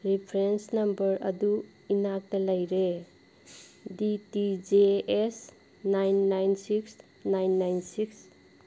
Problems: background sounds at intervals